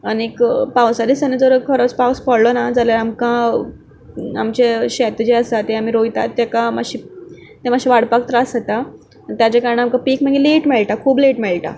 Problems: background sounds at intervals